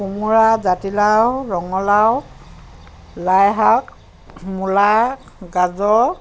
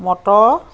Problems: constant background noise, background conversations at intervals